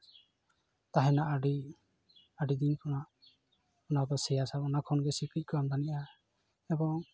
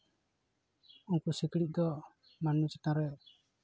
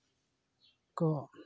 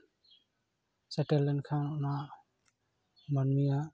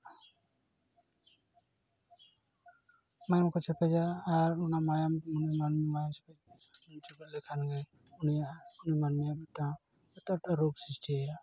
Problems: none marked